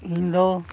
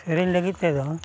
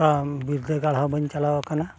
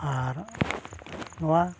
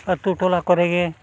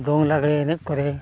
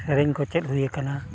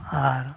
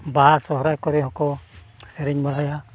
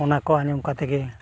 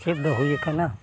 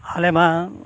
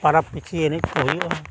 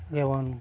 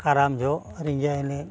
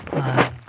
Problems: constant background noise, low volume